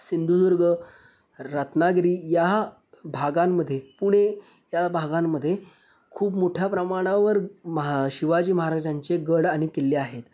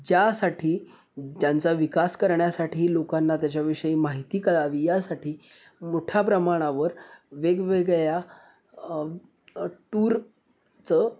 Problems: none marked